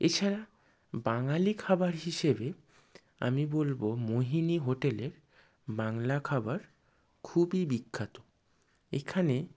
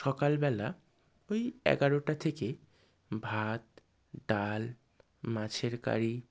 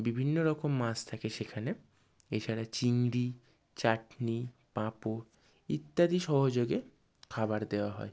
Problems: none marked